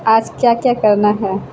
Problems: constant background noise